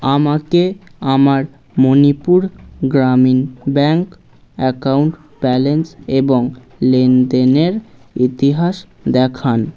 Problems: constant background noise, background conversations at intervals